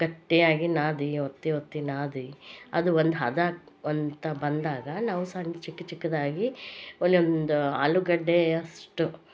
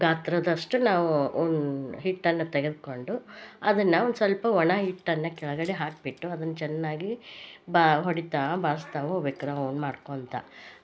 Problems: none marked